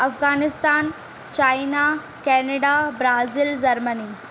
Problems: constant background noise